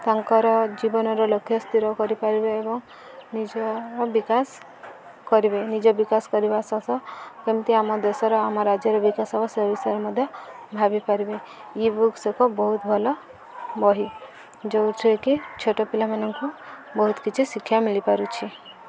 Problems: constant background noise, continuous background conversations